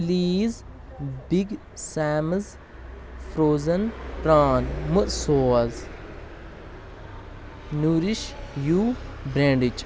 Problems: constant background noise